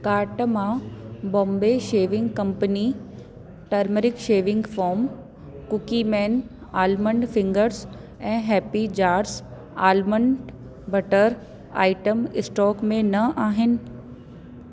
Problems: constant background noise